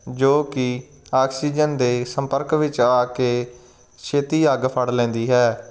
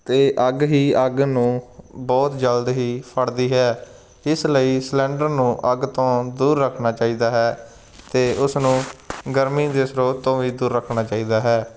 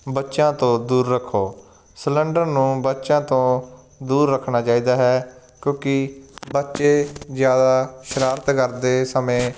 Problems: none marked